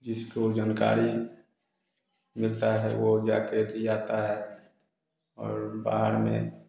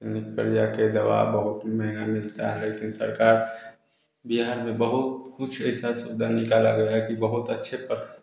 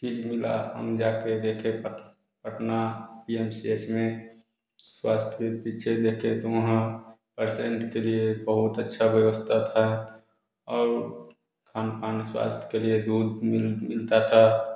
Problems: none marked